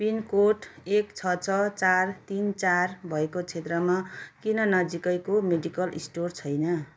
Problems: background sounds at intervals